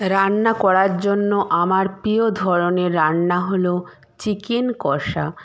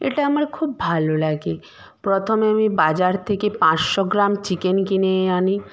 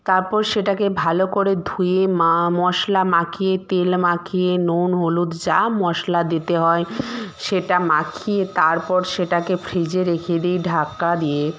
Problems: none marked